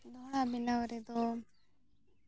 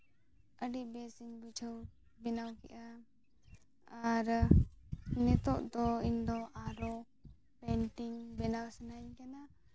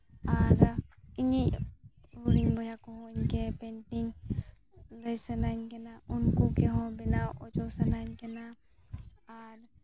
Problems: background sounds at intervals, low volume